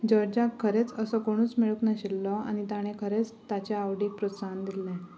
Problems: background sounds at intervals, low volume